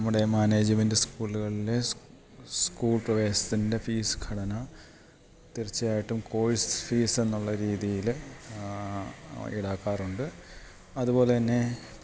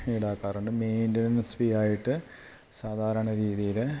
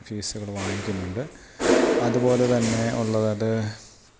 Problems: none marked